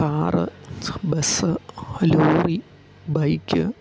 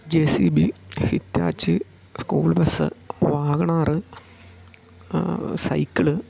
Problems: low volume